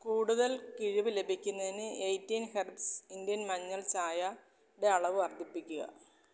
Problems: low volume